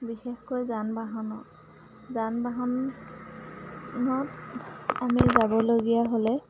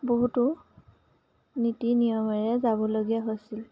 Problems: none marked